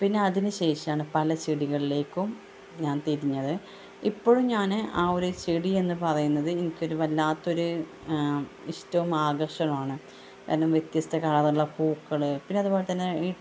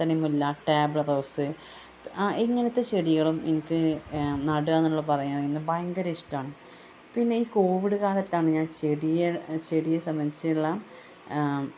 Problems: constant background noise